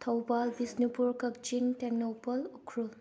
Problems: none marked